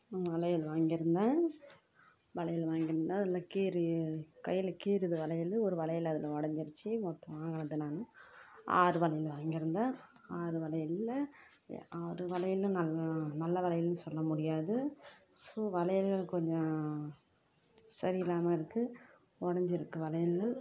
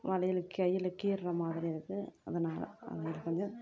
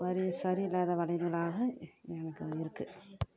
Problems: none marked